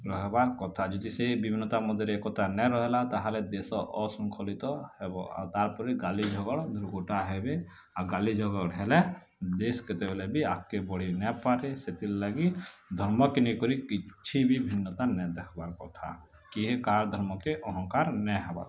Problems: background sounds at intervals